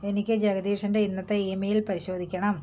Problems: background conversations at intervals